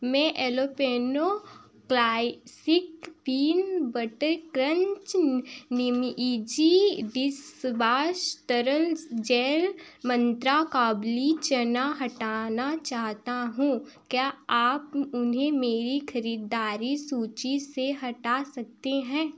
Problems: none marked